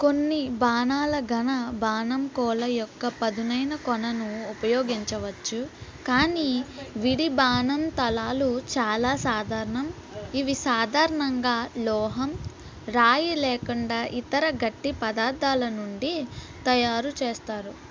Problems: constant background noise